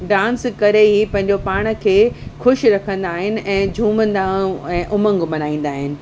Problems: constant background noise